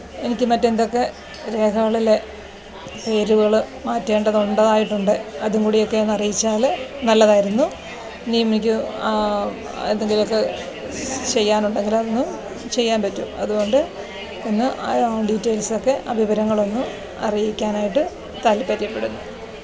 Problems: constant background noise